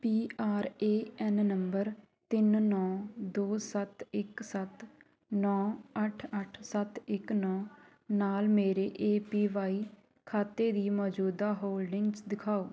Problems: continuous background conversations